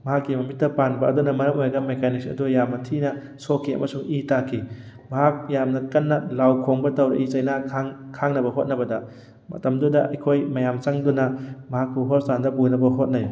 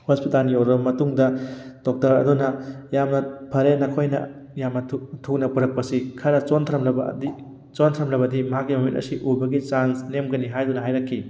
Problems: background sounds at intervals